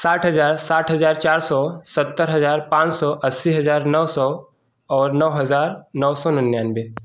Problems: background sounds at intervals